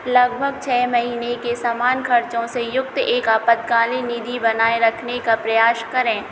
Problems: none marked